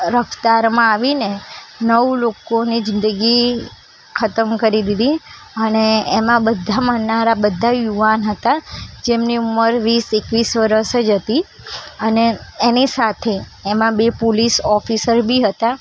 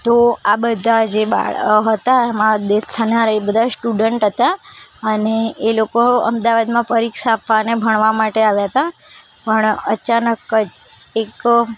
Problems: constant background noise